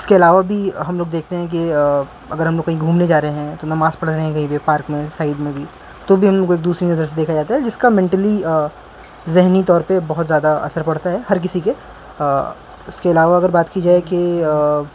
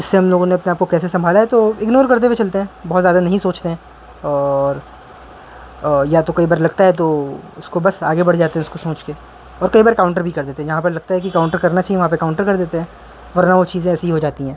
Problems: constant background noise